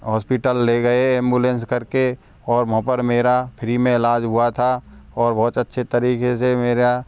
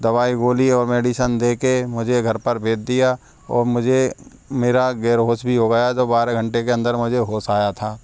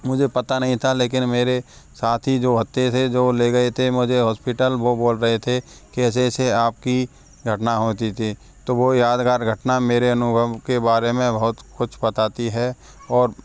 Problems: none marked